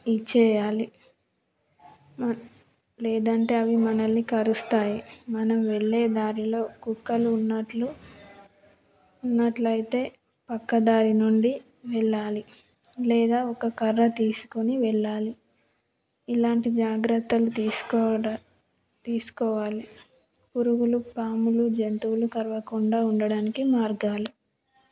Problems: background sounds at intervals